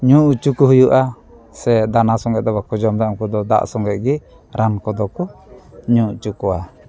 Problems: constant background noise